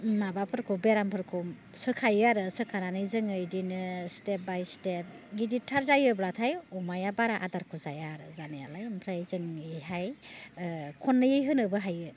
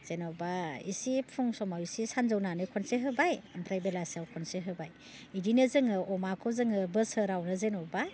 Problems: low volume